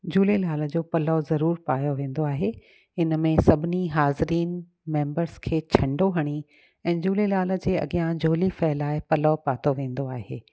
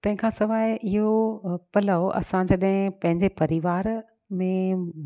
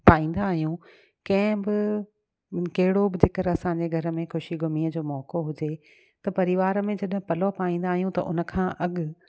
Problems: none marked